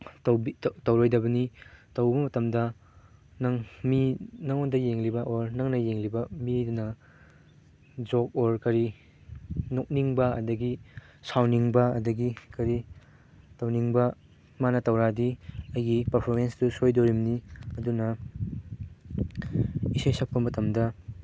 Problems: background sounds at intervals